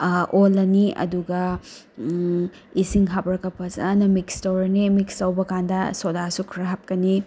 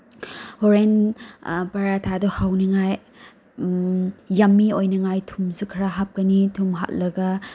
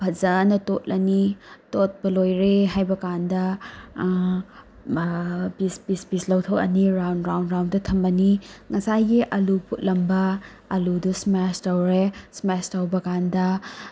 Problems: none marked